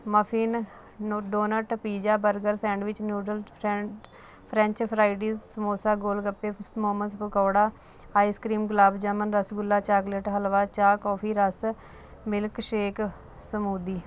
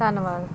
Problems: constant background noise